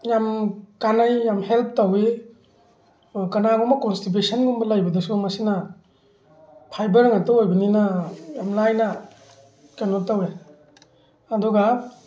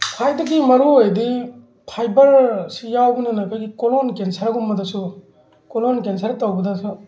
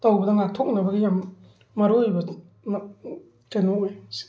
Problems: constant background noise